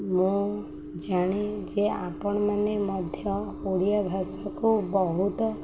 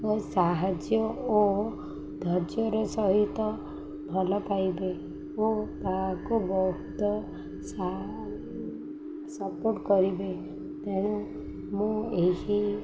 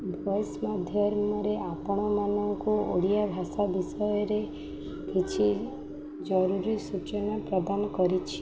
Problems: none marked